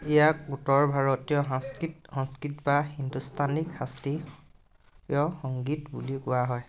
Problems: background sounds at intervals, background conversations at intervals